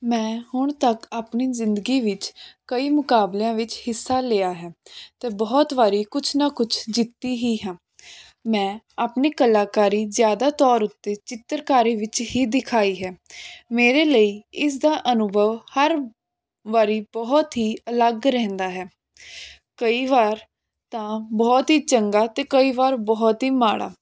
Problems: none marked